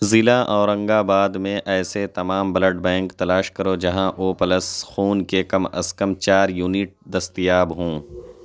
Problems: none marked